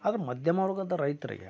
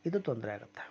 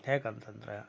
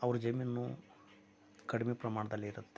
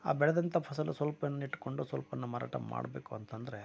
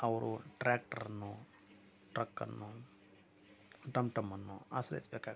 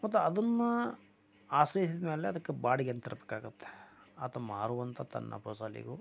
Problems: low volume